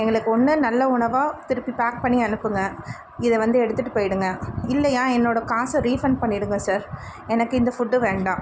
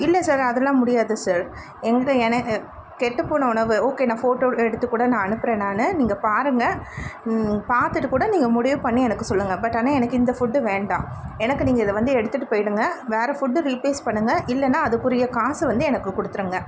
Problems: constant background noise